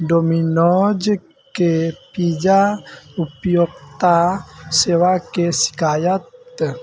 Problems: background sounds at intervals